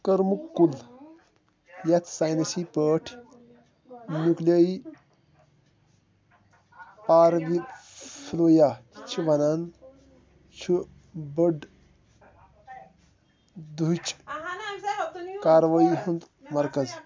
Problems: background sounds at intervals, continuous background conversations